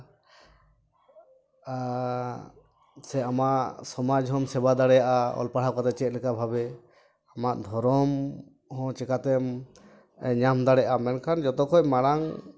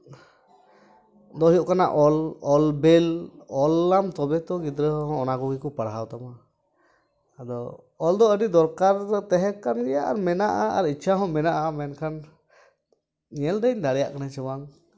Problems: background sounds at intervals